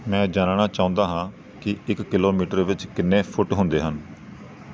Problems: none marked